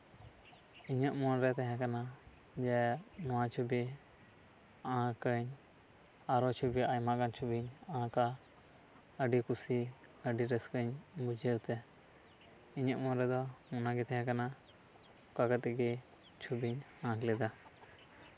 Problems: none marked